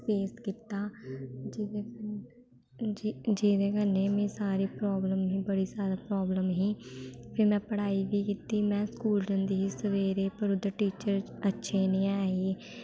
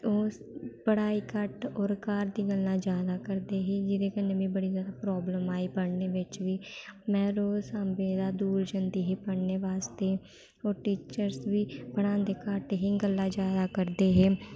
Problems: background sounds at intervals